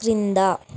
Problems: none marked